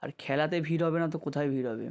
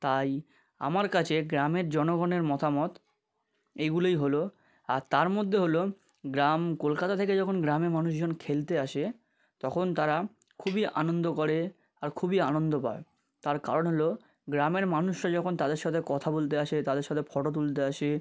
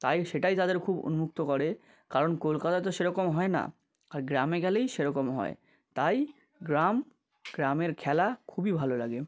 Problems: none marked